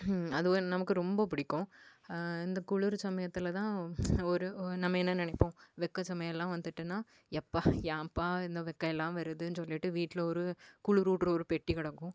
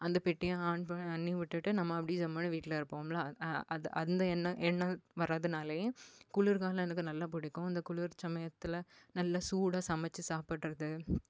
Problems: none marked